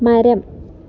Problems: none marked